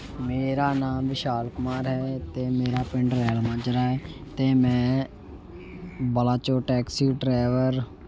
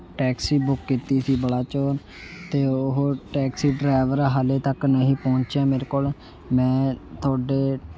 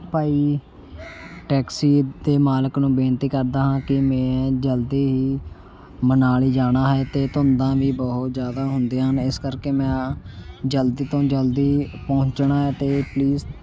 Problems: none marked